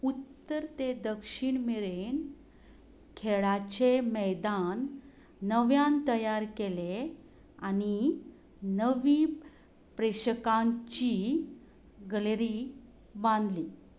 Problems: constant background noise